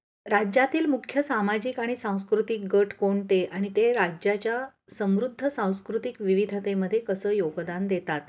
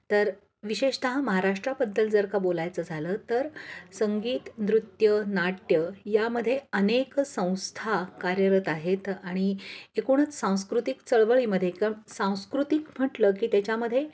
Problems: none marked